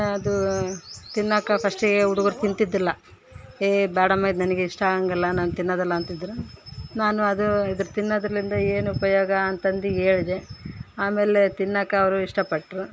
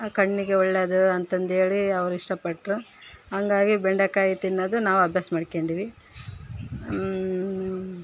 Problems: none marked